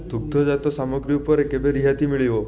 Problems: continuous background conversations